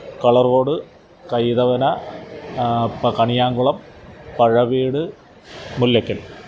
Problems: constant background noise